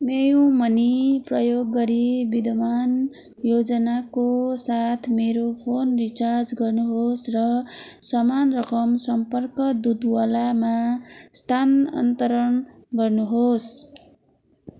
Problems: none marked